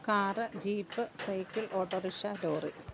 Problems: background sounds at intervals